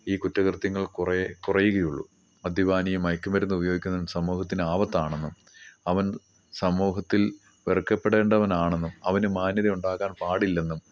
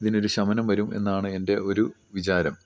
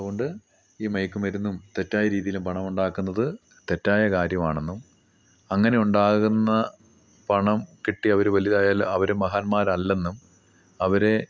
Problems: none marked